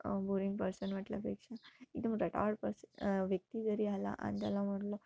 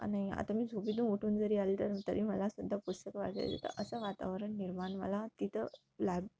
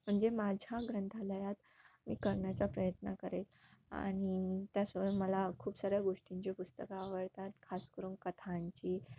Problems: none marked